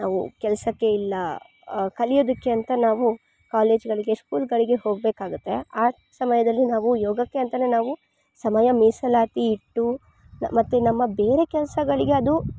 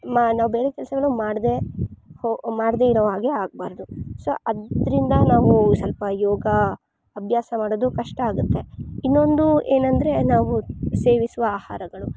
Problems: none marked